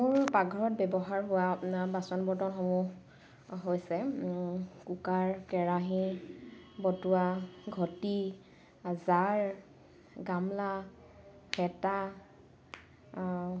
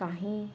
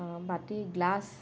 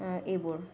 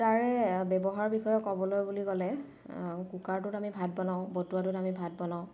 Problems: none marked